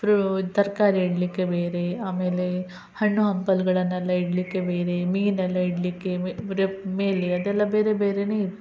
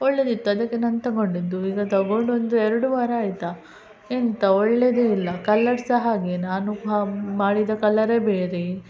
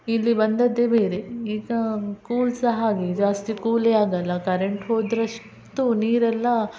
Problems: none marked